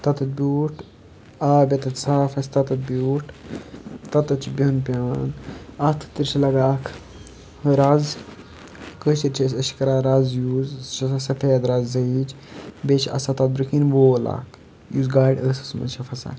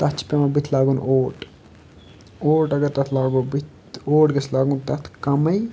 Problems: constant background noise, background conversations at intervals